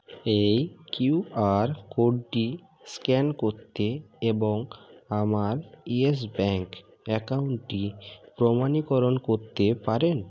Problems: none marked